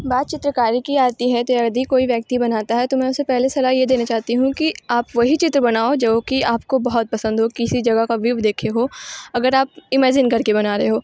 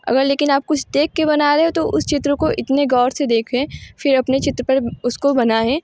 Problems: none marked